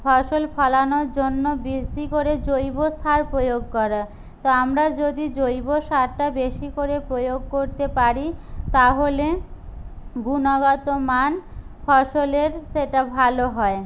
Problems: none marked